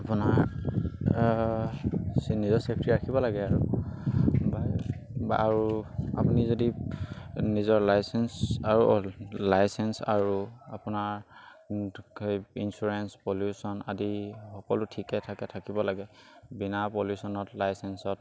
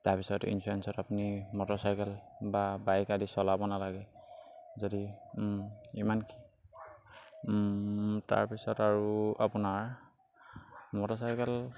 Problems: background sounds at intervals